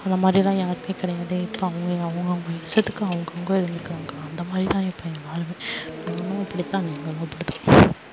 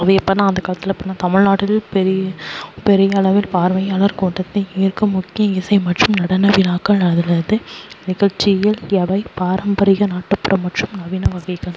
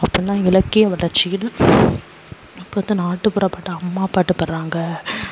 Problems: background sounds at intervals, low volume